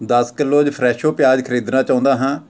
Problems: background sounds at intervals